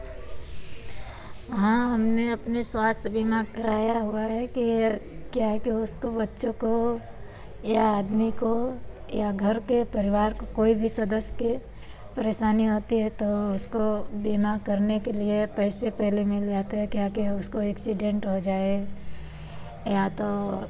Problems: background sounds at intervals, background conversations at intervals